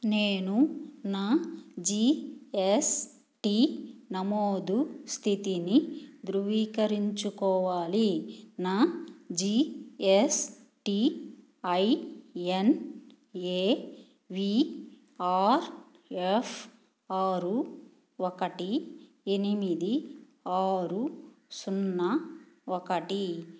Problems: none marked